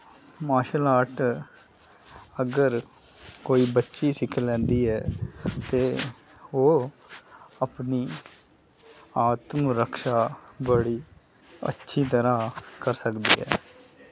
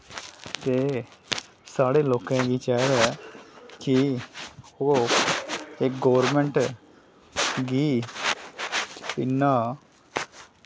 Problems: background sounds at intervals